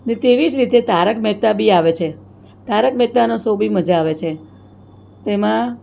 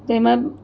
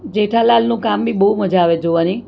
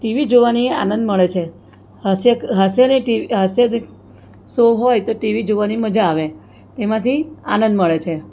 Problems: none marked